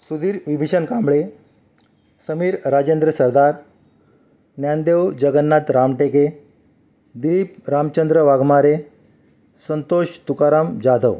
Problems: none marked